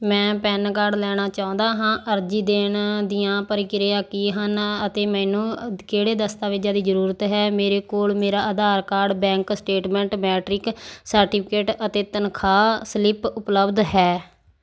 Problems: background sounds at intervals